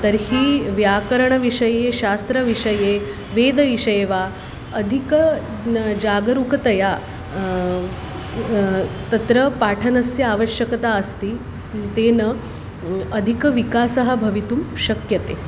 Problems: constant background noise